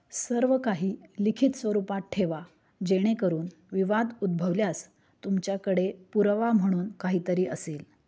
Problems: background sounds at intervals